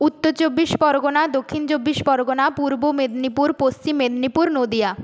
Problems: none marked